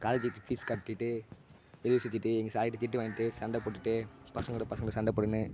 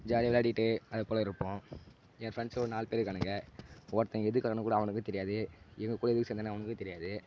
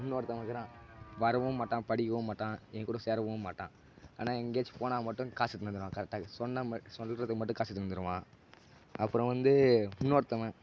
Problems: background sounds at intervals, low volume